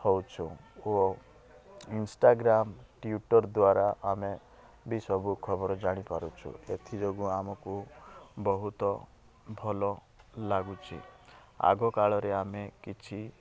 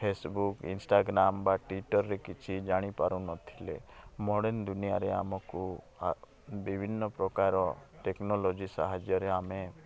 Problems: constant background noise